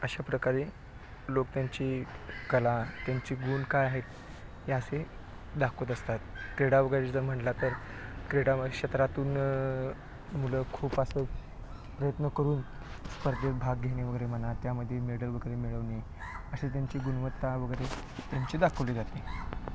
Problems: low volume